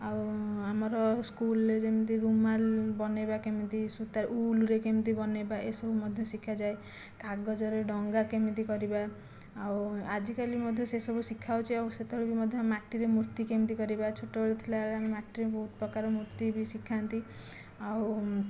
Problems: low volume